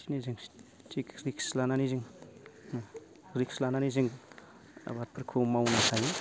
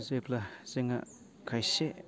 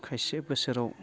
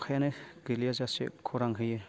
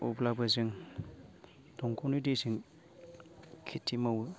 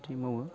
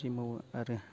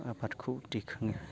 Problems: low volume